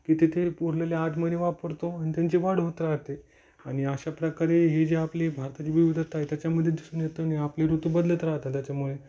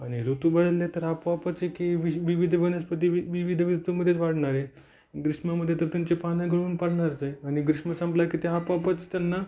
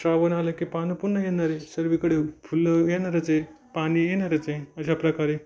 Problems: none marked